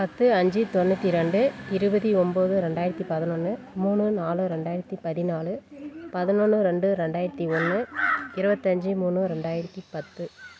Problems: background sounds at intervals